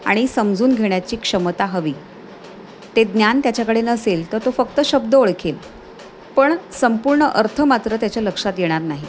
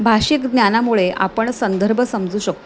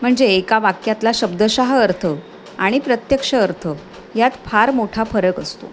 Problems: none marked